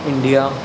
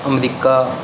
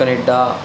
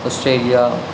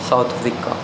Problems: constant background noise